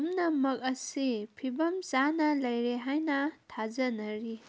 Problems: none marked